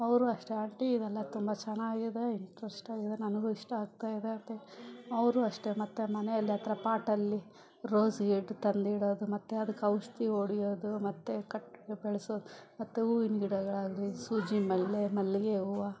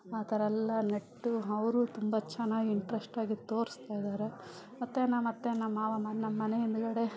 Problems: background sounds at intervals, background conversations at intervals